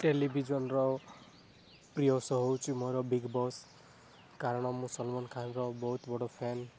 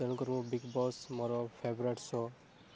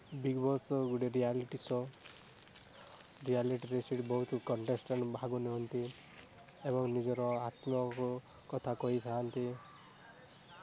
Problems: constant background noise